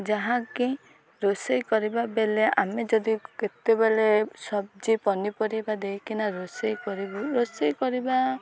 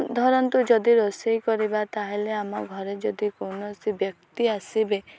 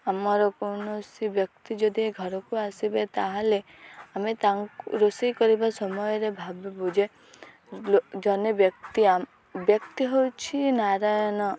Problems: none marked